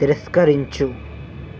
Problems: constant background noise